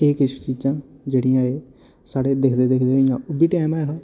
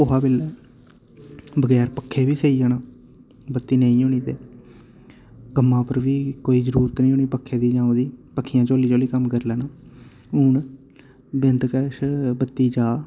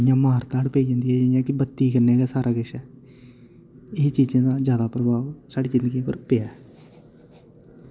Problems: none marked